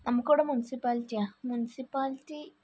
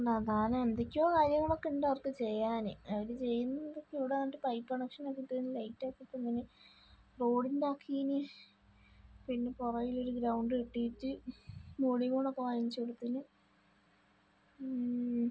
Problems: low volume